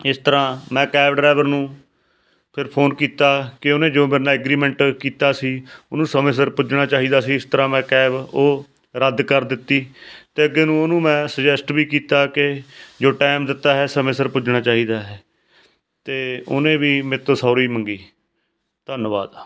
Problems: background sounds at intervals